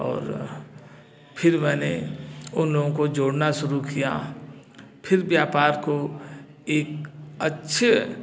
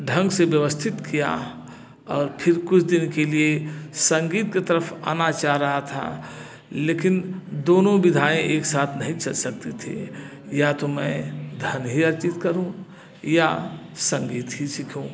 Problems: background sounds at intervals, background conversations at intervals